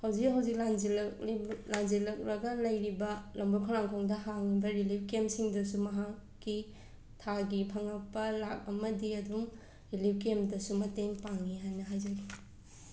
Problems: background sounds at intervals, background conversations at intervals